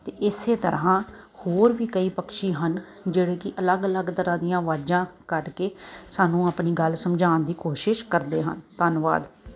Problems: none marked